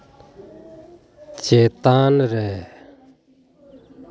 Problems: background conversations at intervals